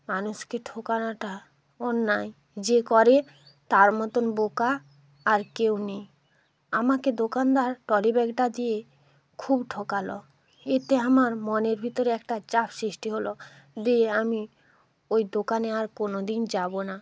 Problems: background sounds at intervals